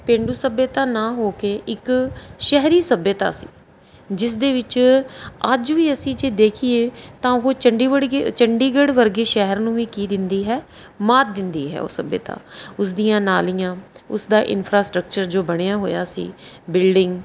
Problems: background sounds at intervals